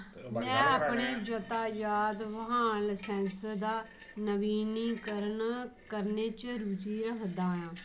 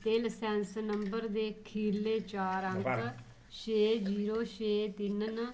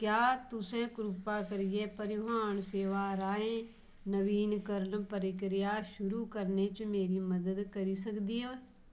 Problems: low volume